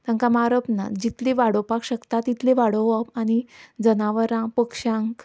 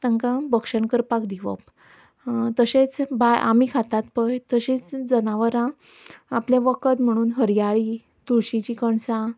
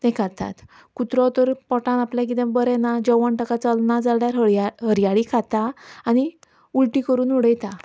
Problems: background sounds at intervals